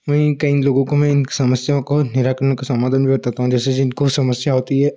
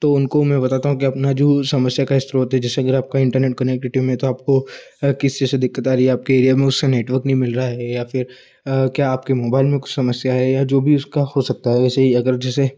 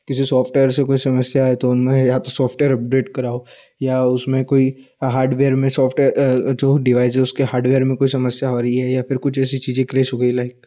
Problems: none marked